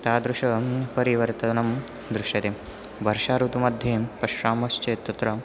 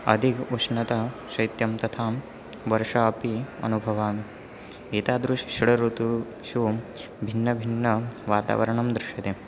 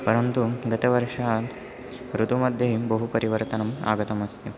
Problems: none marked